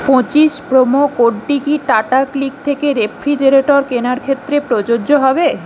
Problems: constant background noise